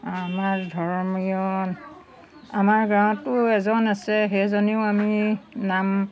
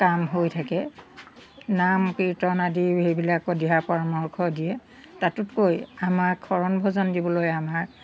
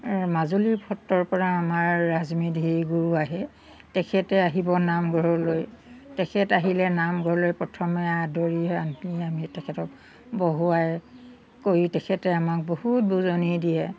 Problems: background sounds at intervals